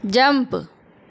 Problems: none marked